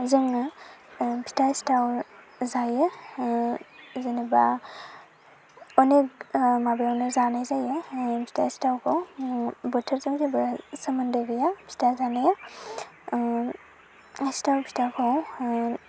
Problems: constant background noise